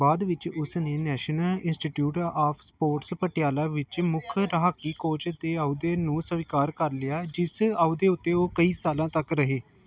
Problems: background sounds at intervals